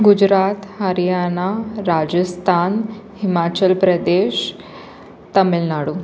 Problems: constant background noise, continuous background conversations